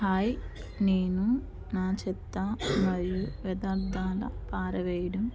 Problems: low volume